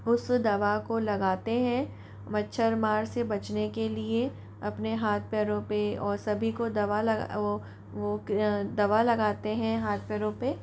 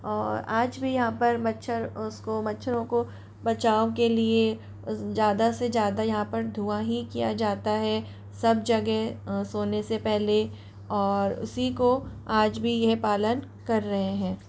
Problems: none marked